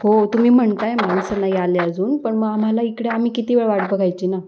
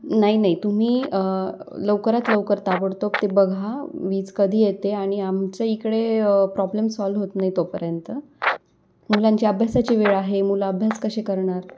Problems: none marked